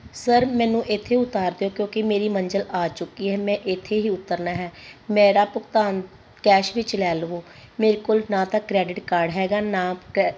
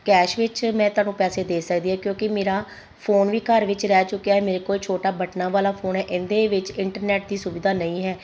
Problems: constant background noise